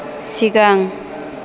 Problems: none marked